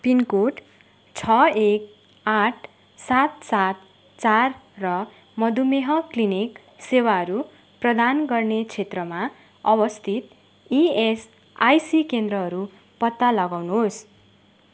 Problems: none marked